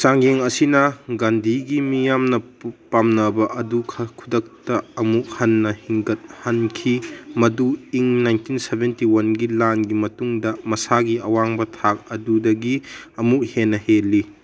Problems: background sounds at intervals